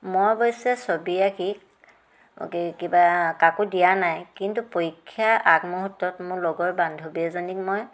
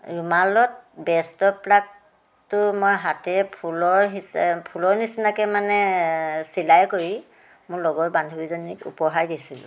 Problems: background sounds at intervals